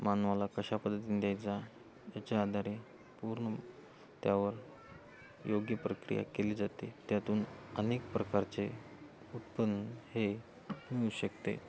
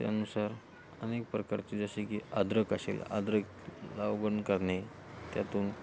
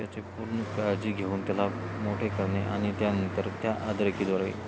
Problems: none marked